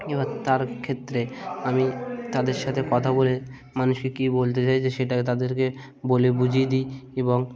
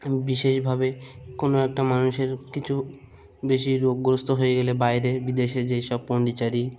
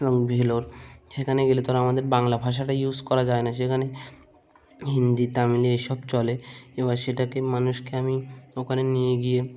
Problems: constant background noise, background conversations at intervals